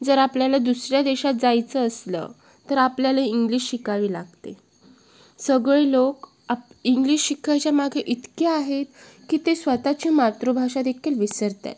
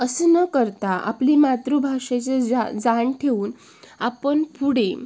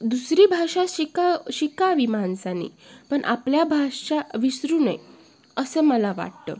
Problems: constant background noise, background conversations at intervals